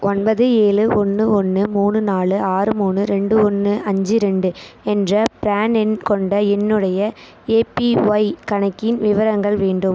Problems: constant background noise